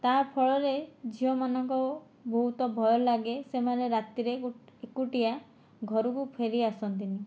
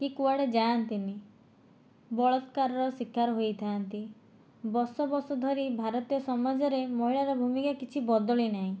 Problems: none marked